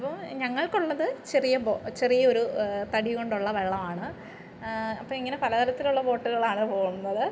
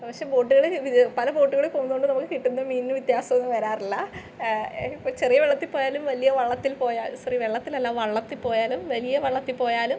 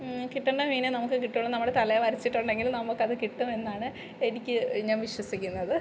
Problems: low volume